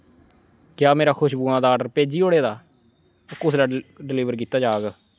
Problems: constant background noise